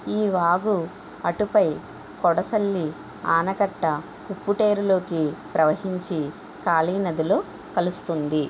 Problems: constant background noise